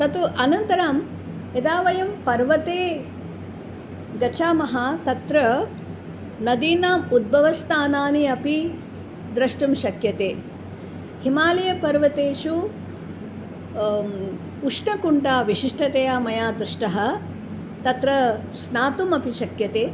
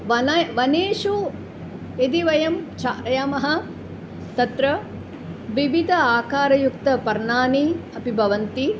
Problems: constant background noise